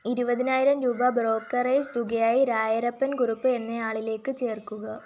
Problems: none marked